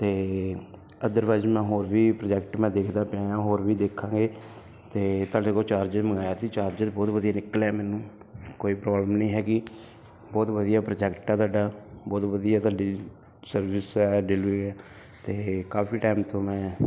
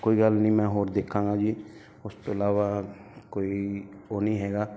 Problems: constant background noise